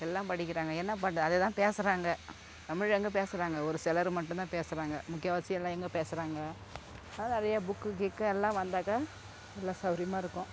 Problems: constant background noise